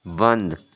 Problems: none marked